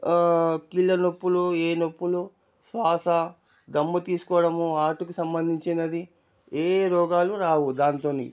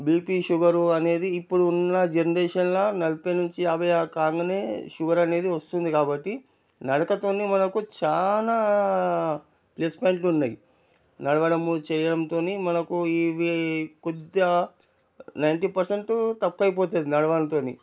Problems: low volume